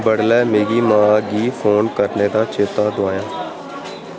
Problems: constant background noise